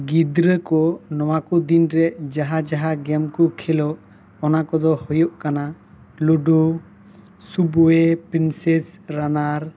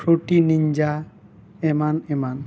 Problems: constant background noise